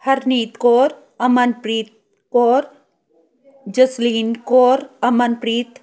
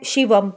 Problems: background conversations at intervals